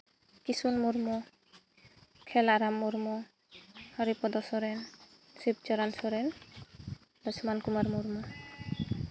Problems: none marked